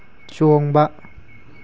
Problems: none marked